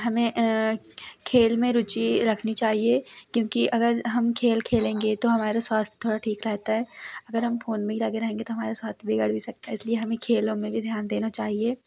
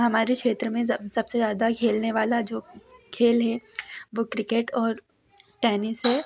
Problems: background sounds at intervals, background conversations at intervals